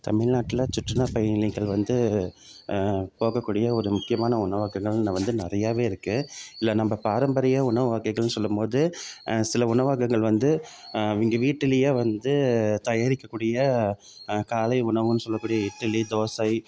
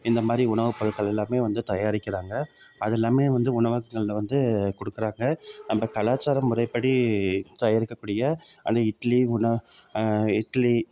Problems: background sounds at intervals